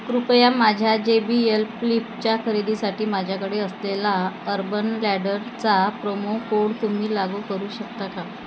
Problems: constant background noise